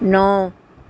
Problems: none marked